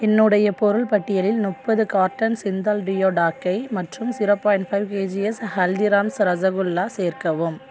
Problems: background sounds at intervals